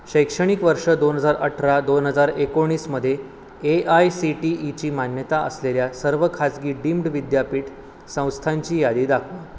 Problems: constant background noise